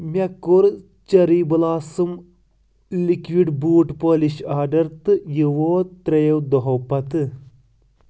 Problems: constant background noise